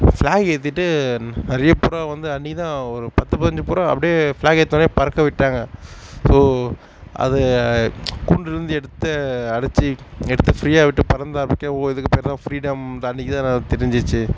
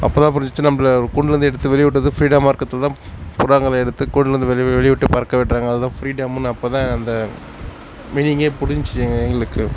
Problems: none marked